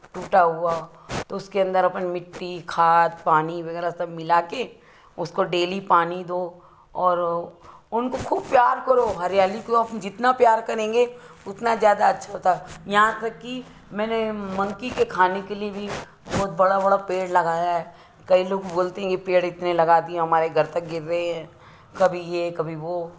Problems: none marked